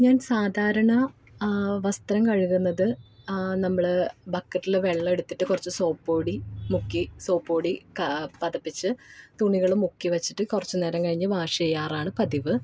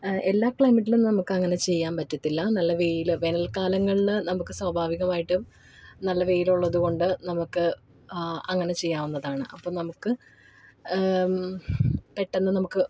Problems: none marked